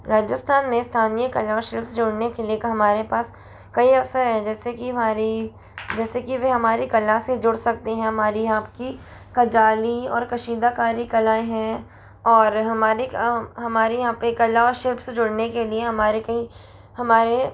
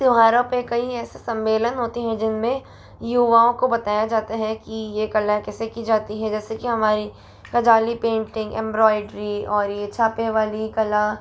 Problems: constant background noise